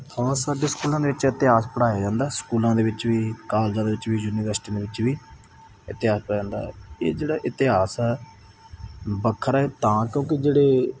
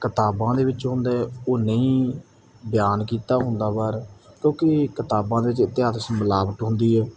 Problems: none marked